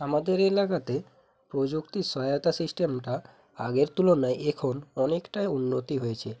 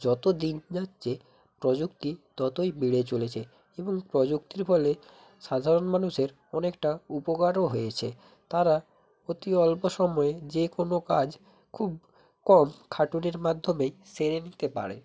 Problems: constant background noise